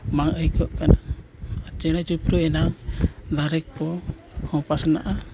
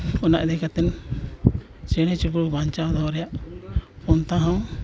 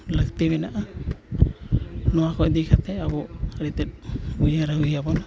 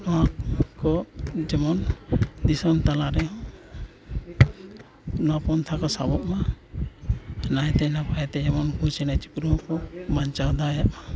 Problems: constant background noise, continuous background conversations